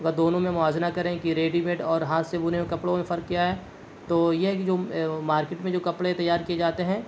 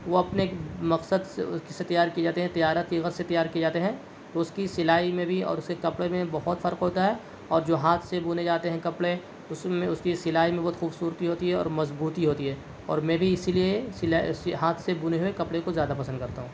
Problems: none marked